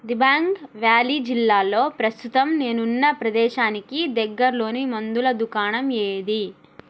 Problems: none marked